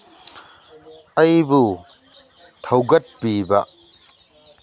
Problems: none marked